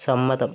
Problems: constant background noise